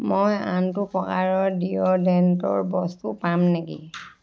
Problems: background sounds at intervals, background conversations at intervals